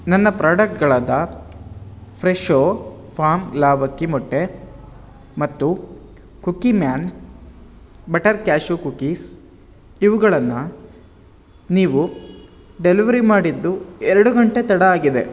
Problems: background sounds at intervals